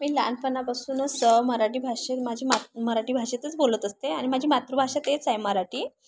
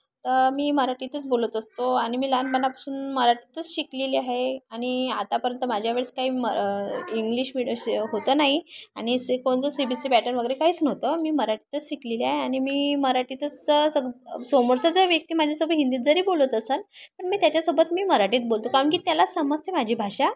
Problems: constant background noise, continuous background conversations